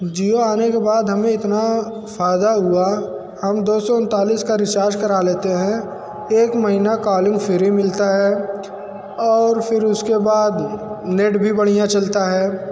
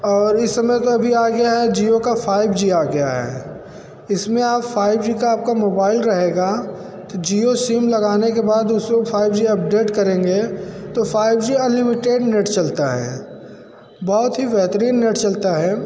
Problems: constant background noise